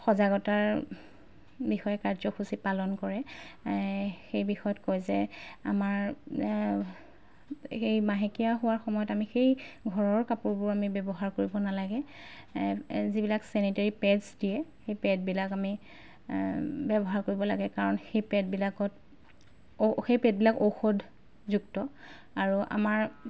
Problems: background sounds at intervals